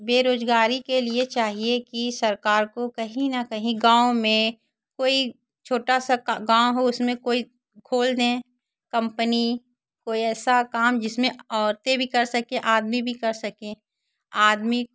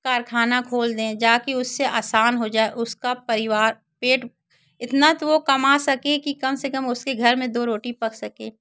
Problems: constant background noise, background conversations at intervals